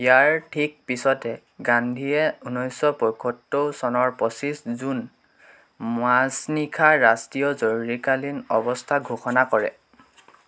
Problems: constant background noise